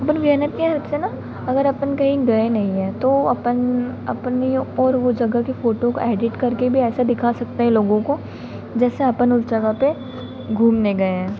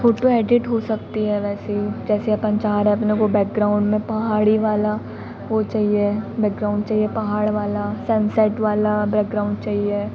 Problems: constant background noise